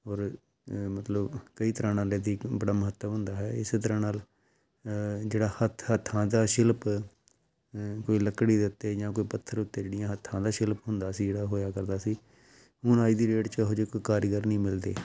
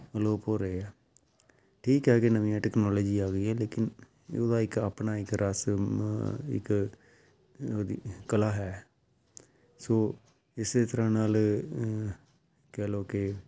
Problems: background sounds at intervals